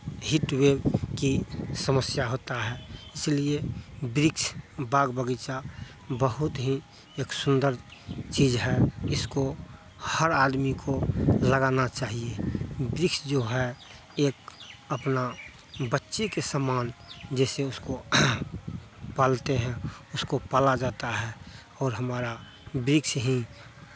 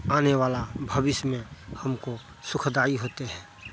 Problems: constant background noise